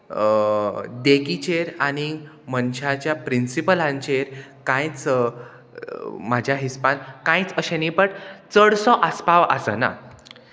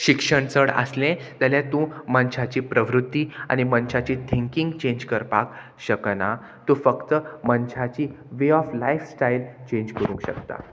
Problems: constant background noise